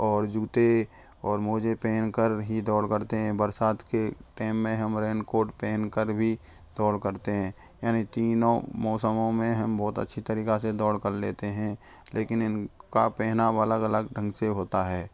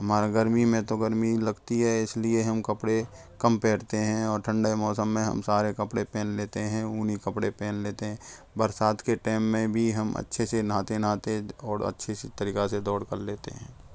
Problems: none marked